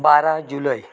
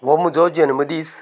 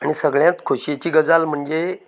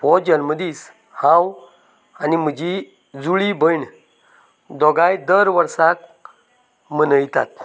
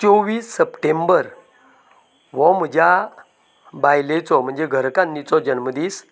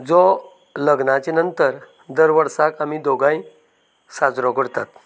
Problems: background conversations at intervals